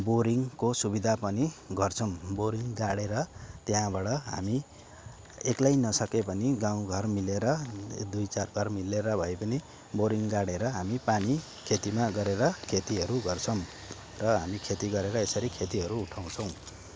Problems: constant background noise, background conversations at intervals